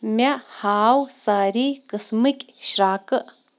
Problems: background sounds at intervals